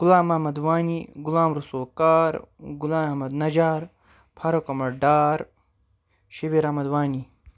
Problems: none marked